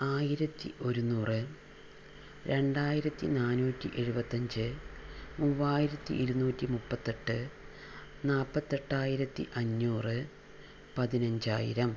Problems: none marked